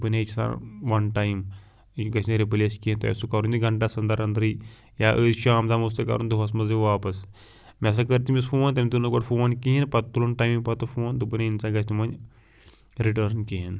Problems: background sounds at intervals